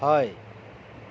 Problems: none marked